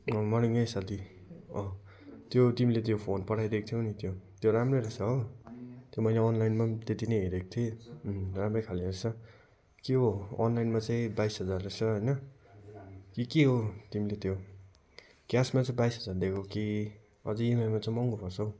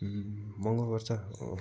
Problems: none marked